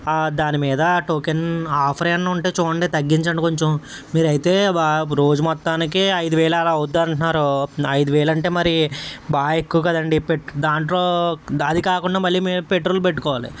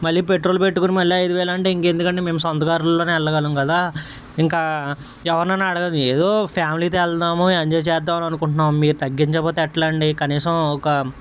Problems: none marked